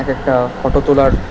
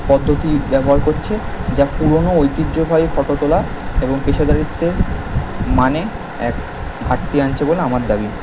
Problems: none marked